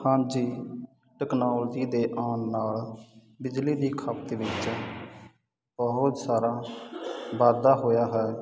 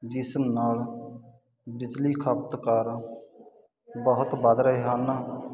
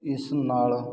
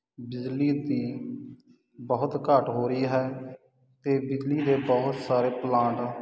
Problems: constant background noise